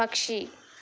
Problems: none marked